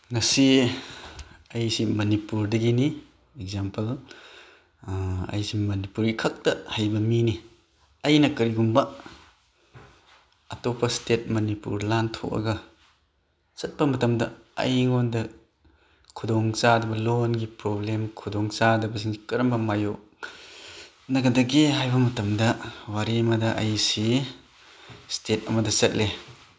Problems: background sounds at intervals, background conversations at intervals